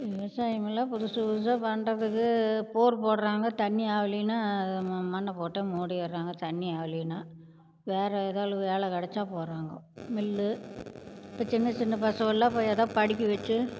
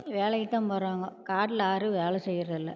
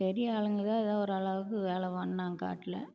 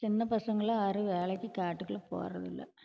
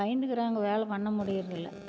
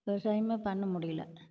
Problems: background sounds at intervals